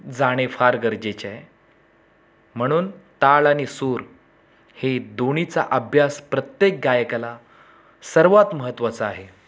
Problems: background sounds at intervals, background conversations at intervals